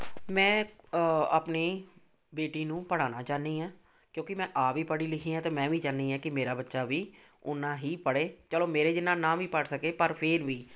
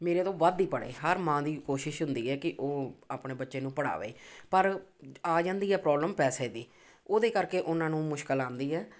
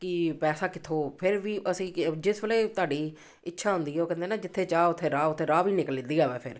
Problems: none marked